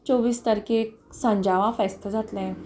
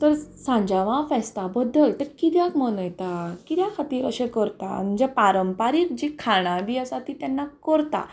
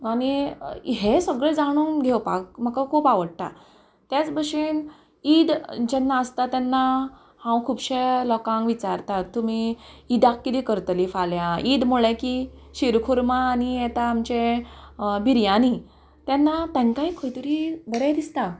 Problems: none marked